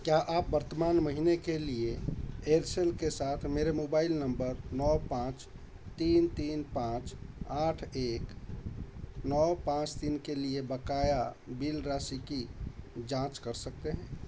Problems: constant background noise